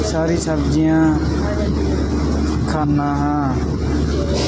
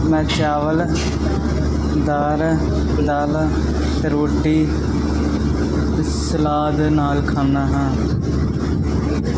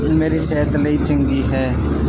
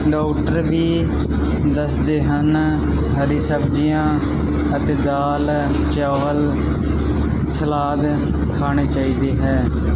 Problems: constant background noise, continuous background conversations